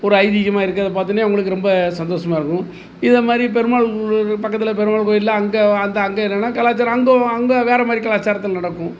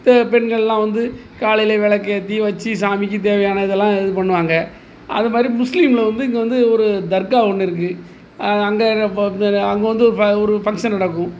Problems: background sounds at intervals